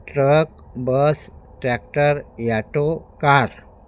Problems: constant background noise